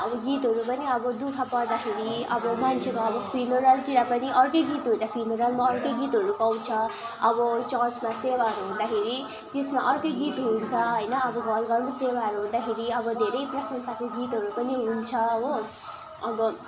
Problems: constant background noise, continuous background conversations